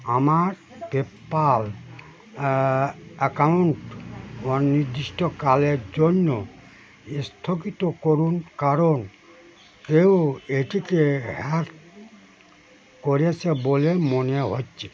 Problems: none marked